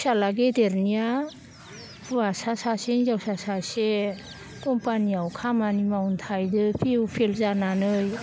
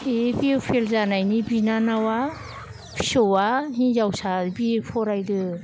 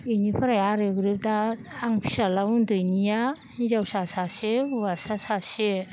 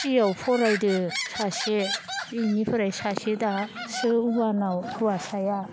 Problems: none marked